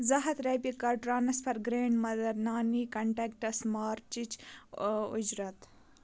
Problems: none marked